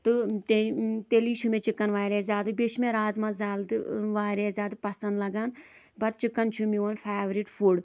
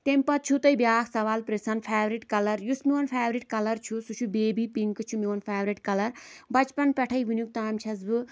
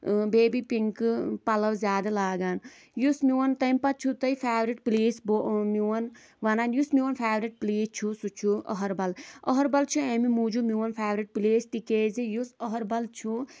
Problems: constant background noise